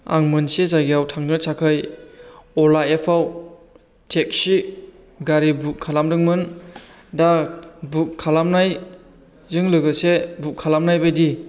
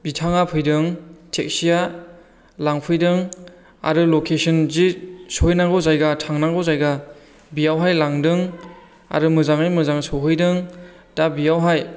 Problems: low volume